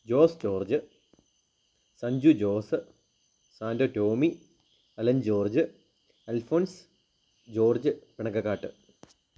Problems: low volume